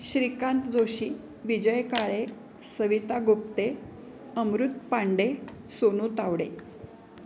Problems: none marked